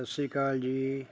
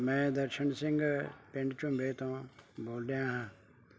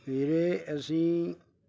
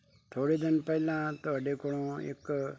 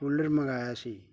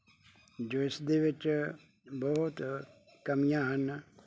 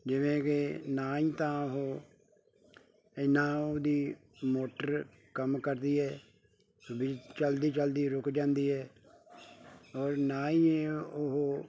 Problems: background conversations at intervals